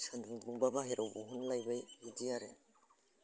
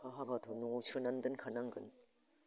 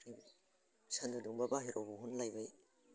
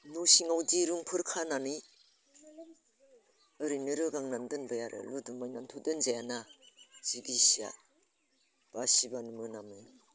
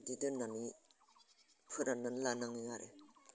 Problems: constant background noise